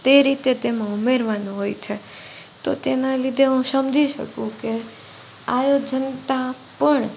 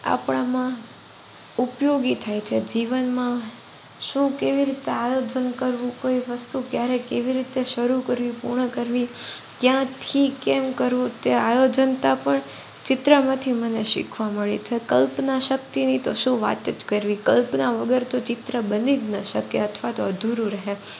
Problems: constant background noise